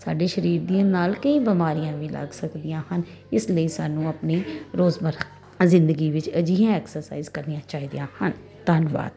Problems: constant background noise